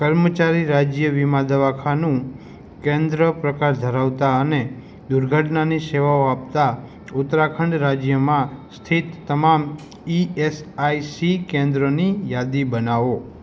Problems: background sounds at intervals